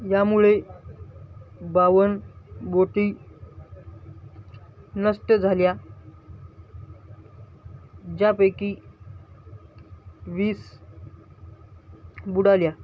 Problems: none marked